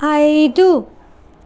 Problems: constant background noise